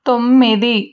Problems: none marked